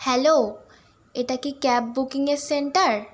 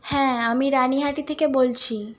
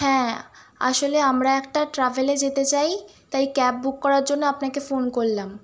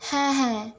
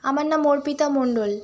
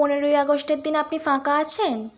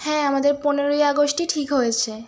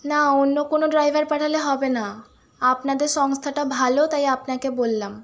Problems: constant background noise